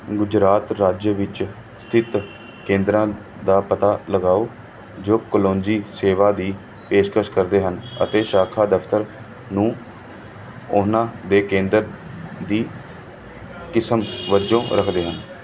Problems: none marked